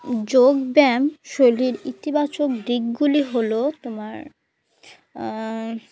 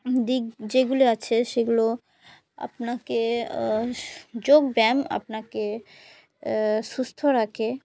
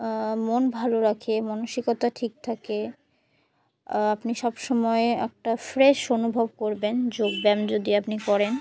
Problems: constant background noise, continuous background conversations